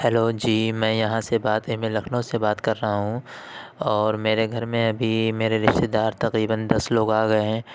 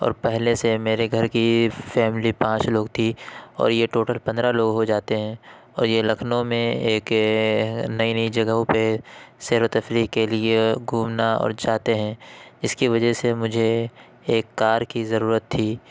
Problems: constant background noise